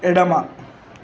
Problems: constant background noise